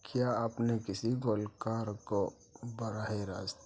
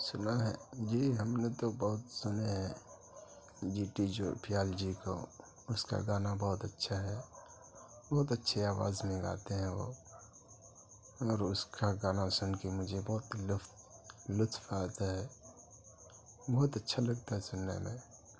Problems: low volume